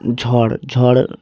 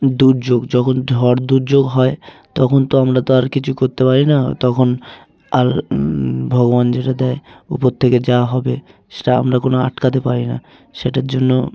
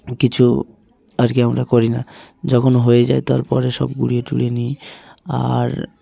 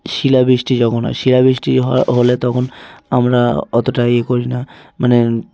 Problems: constant background noise, continuous background conversations